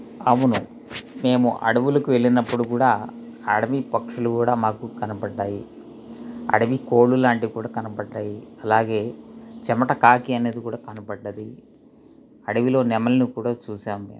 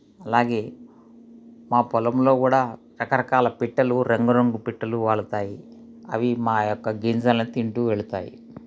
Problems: constant background noise